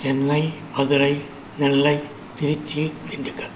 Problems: constant background noise